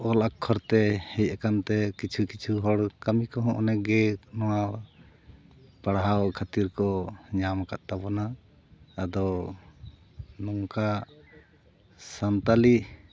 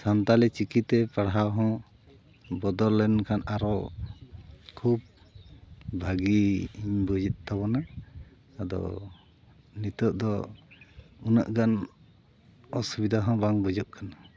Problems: background sounds at intervals